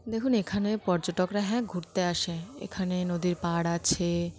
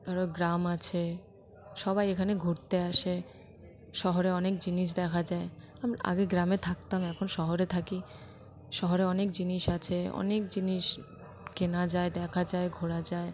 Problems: constant background noise